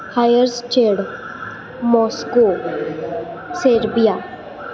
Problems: constant background noise, continuous background conversations